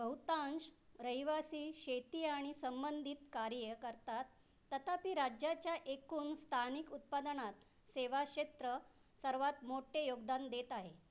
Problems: none marked